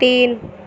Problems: constant background noise